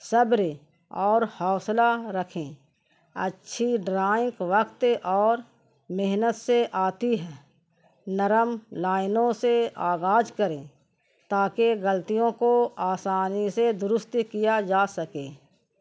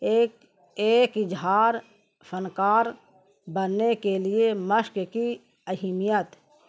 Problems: constant background noise